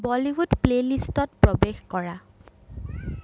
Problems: background sounds at intervals, background conversations at intervals